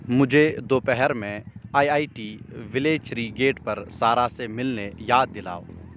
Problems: constant background noise